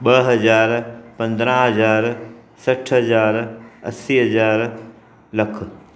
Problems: constant background noise